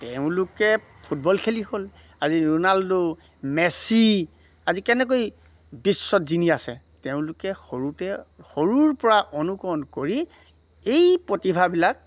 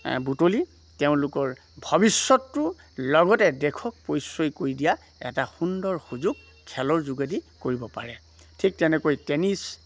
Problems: background sounds at intervals